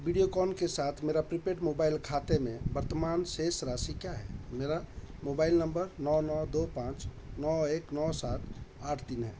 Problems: constant background noise